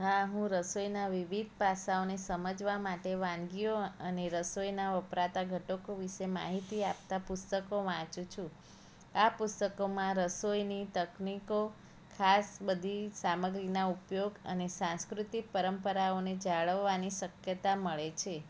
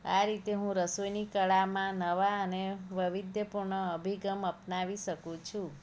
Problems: none marked